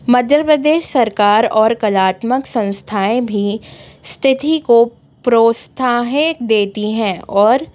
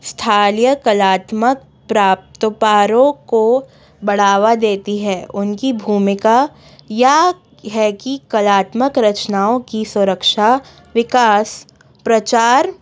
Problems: background sounds at intervals, background conversations at intervals